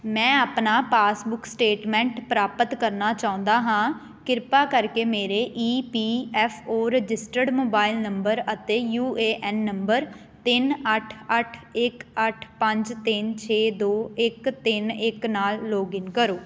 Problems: none marked